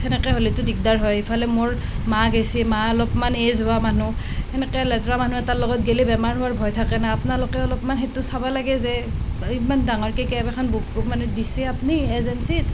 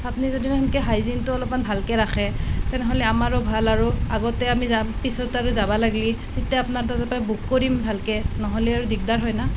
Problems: constant background noise